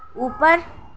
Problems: background sounds at intervals